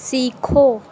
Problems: background sounds at intervals